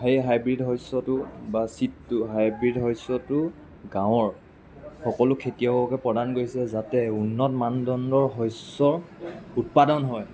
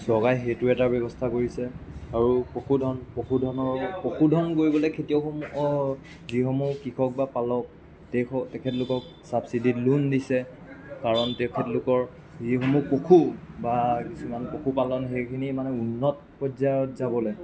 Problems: background sounds at intervals, continuous background conversations